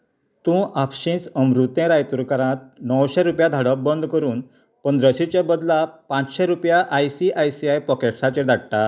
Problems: none marked